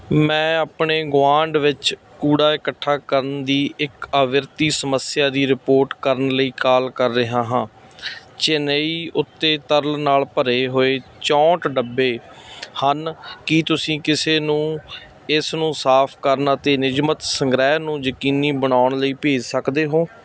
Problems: none marked